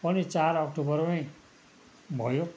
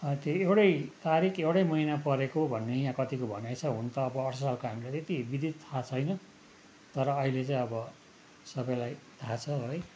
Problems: background sounds at intervals